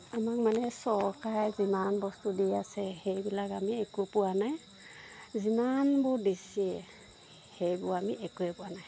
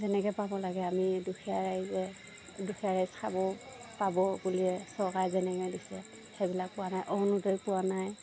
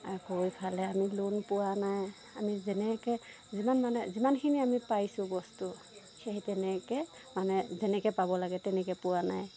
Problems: background sounds at intervals